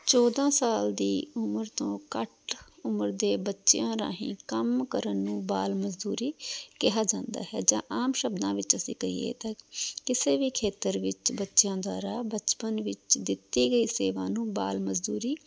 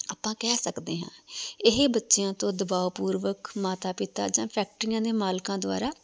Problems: background sounds at intervals